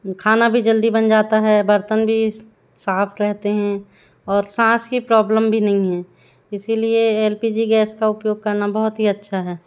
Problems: none marked